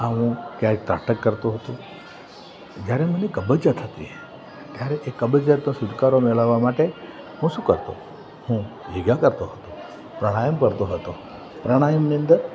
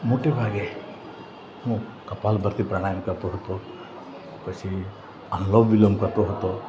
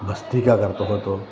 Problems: constant background noise